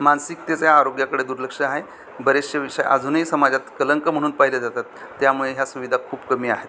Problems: none marked